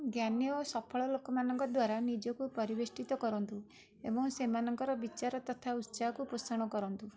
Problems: background sounds at intervals, background conversations at intervals